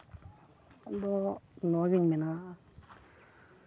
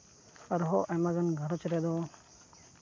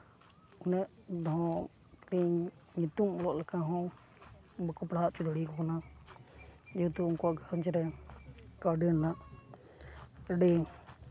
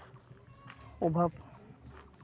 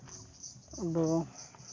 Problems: none marked